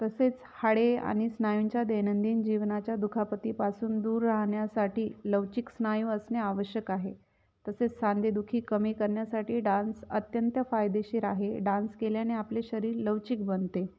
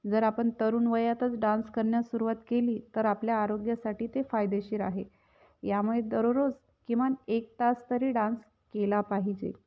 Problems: background sounds at intervals